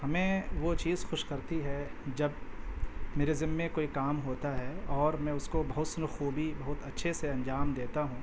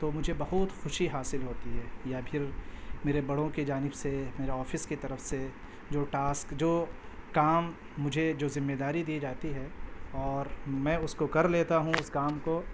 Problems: constant background noise